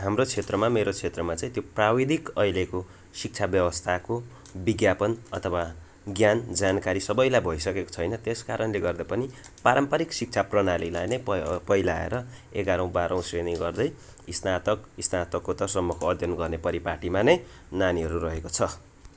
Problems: constant background noise